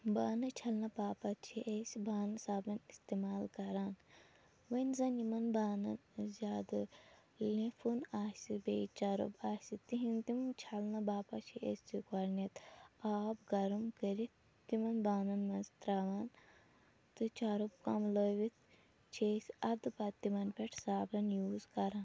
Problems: background sounds at intervals